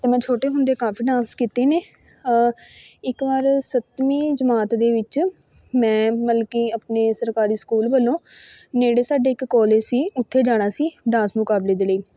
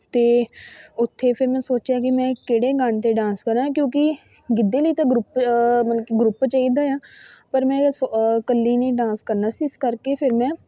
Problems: background sounds at intervals, continuous background conversations